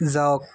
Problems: none marked